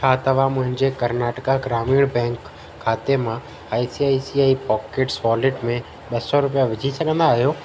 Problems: constant background noise, echo